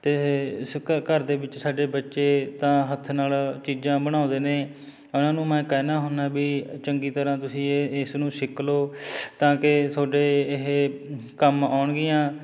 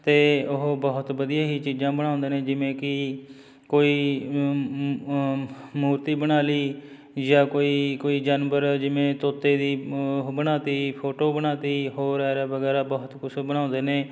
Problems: background sounds at intervals, background conversations at intervals